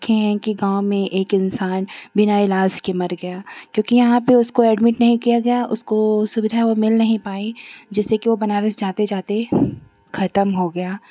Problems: constant background noise